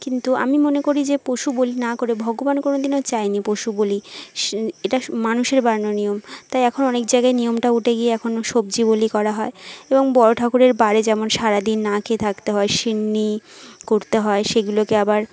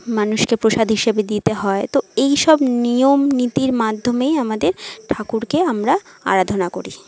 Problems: background conversations at intervals